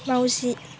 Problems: constant background noise